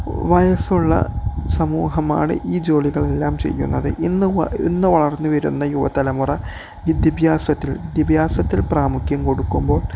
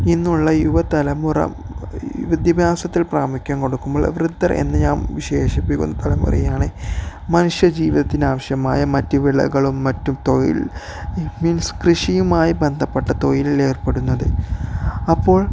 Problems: none marked